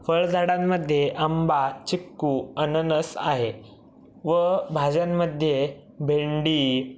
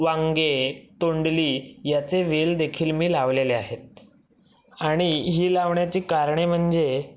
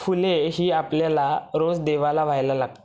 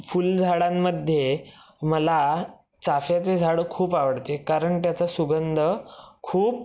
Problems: none marked